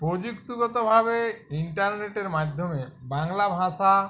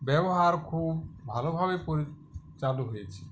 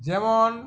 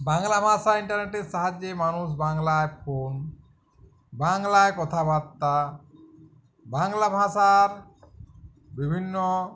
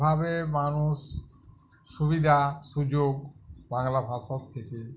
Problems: none marked